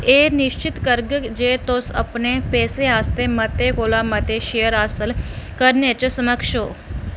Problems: none marked